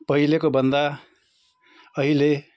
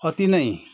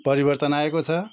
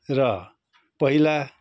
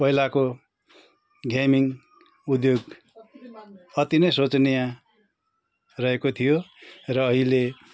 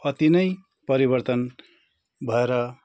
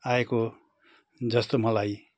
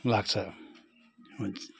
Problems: none marked